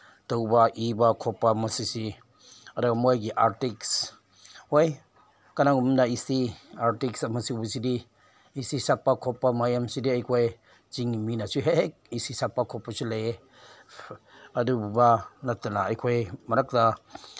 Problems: background sounds at intervals